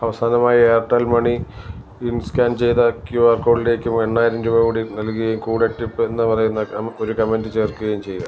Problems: constant background noise